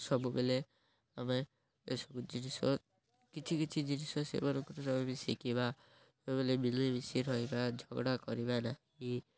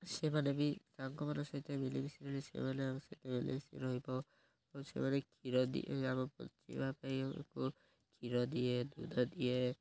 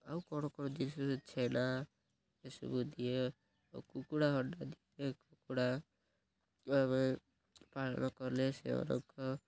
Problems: none marked